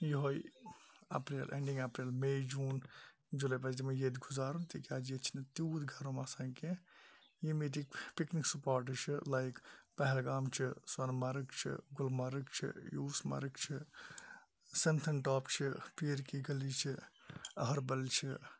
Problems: low volume